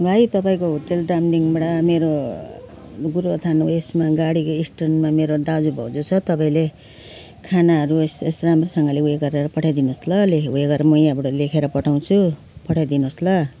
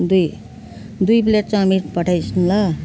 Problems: background sounds at intervals